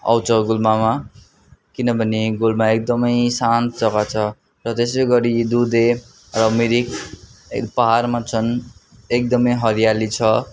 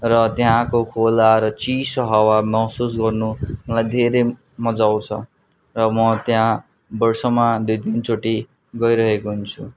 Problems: constant background noise